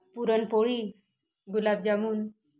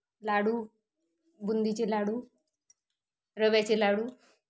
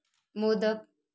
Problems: none marked